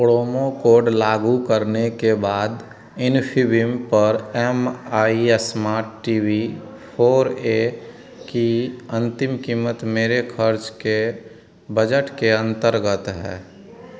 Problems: none marked